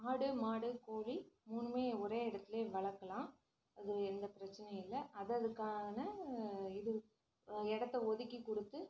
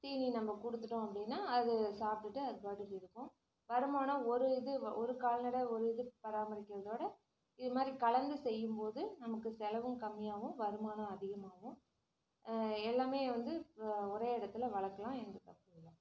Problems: none marked